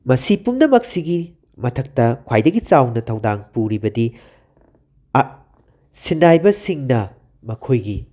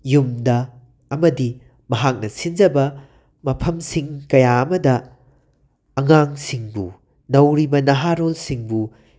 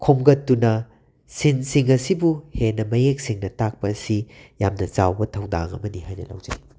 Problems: background sounds at intervals